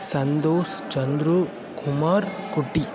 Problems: constant background noise